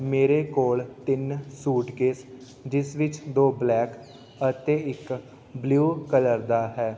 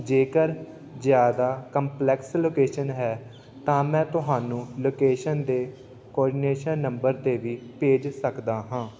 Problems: background sounds at intervals, continuous background conversations